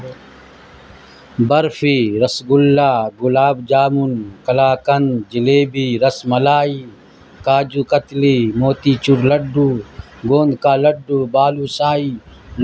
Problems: constant background noise